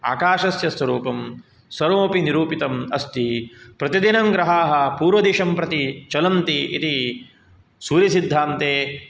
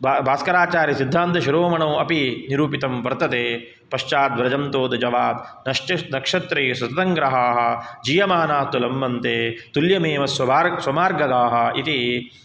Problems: none marked